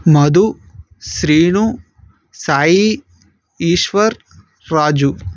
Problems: none marked